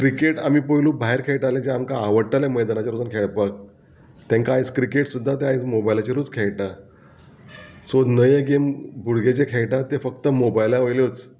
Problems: background sounds at intervals